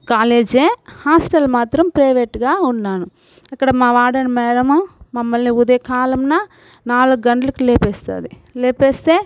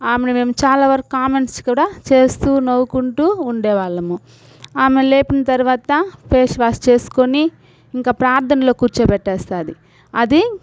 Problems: none marked